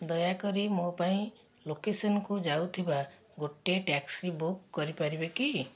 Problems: none marked